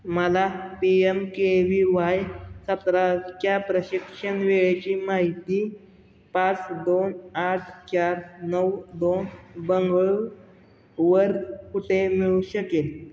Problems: background sounds at intervals